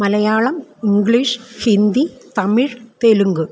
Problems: background sounds at intervals